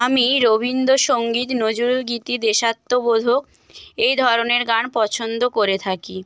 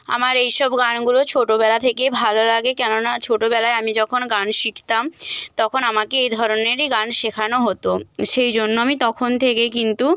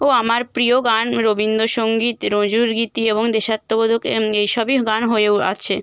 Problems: constant background noise